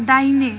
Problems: background sounds at intervals